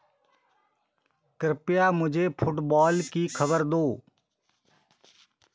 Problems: constant background noise